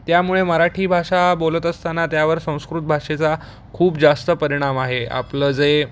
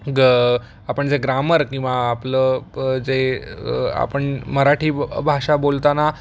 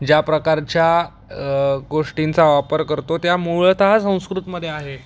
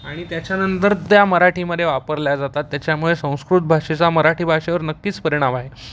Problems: constant background noise